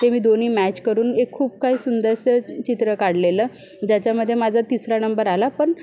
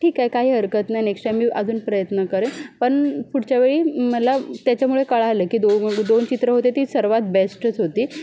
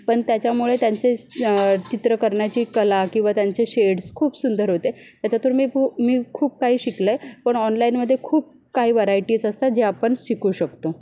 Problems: none marked